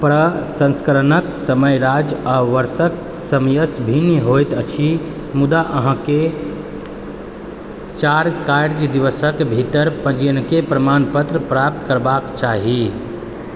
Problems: constant background noise